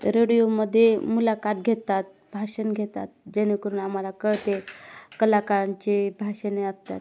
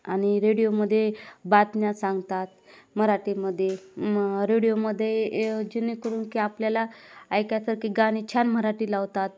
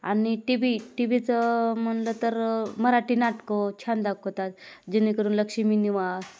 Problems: none marked